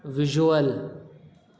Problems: constant background noise